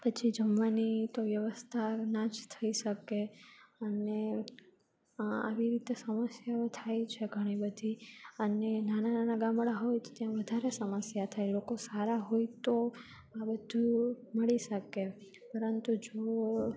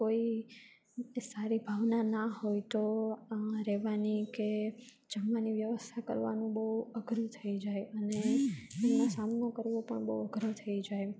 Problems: constant background noise